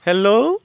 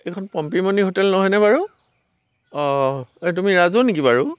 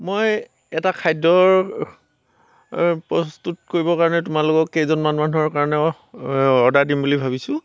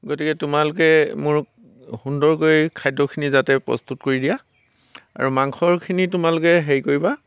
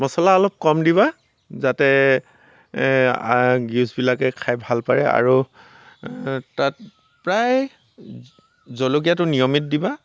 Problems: none marked